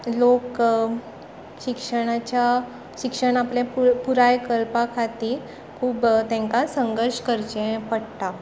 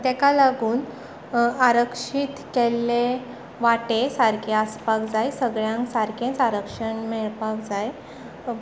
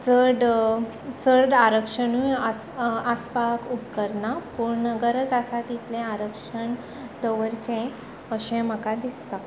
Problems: background conversations at intervals